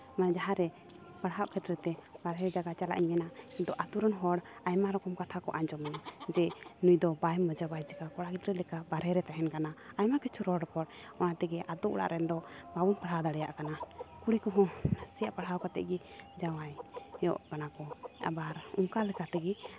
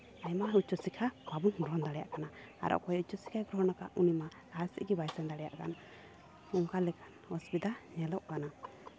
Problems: constant background noise, continuous background conversations